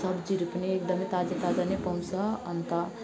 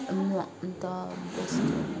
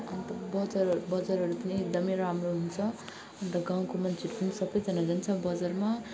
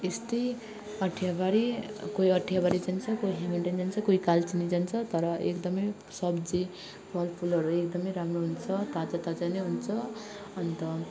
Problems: constant background noise, continuous background conversations